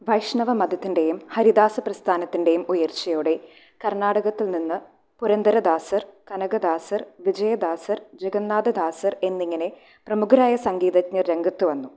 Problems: none marked